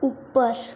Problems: constant background noise